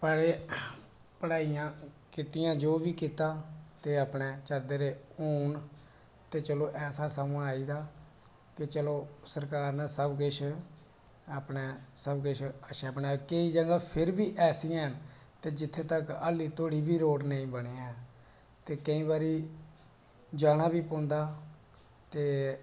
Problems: none marked